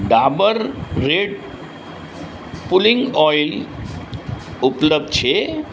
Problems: constant background noise